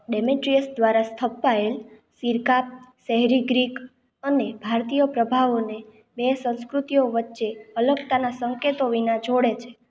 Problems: none marked